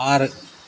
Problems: constant background noise